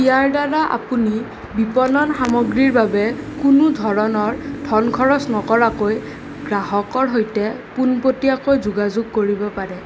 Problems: none marked